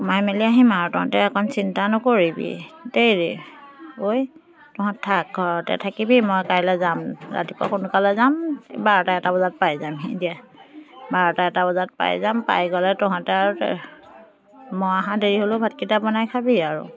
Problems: continuous background conversations